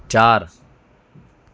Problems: none marked